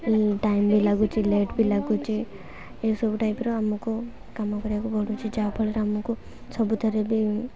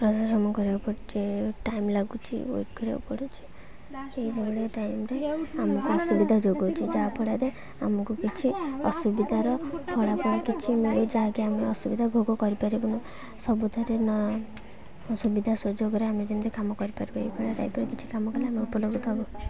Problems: constant background noise, continuous background conversations